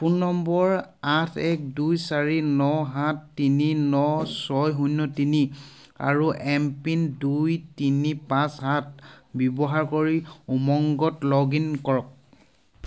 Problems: none marked